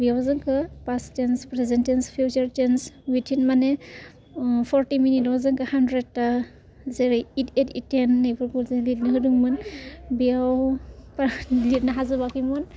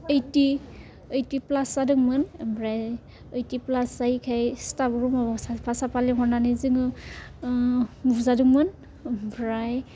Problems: constant background noise